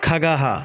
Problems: constant background noise